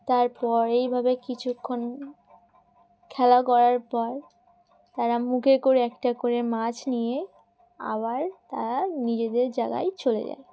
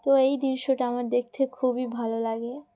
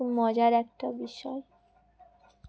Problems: background sounds at intervals